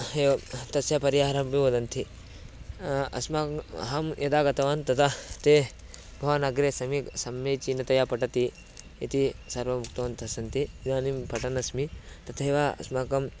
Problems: constant background noise